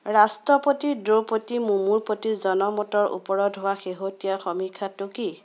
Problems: constant background noise